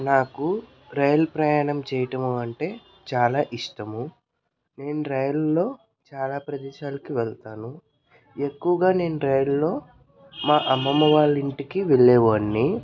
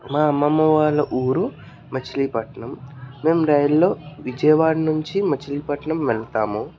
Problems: background conversations at intervals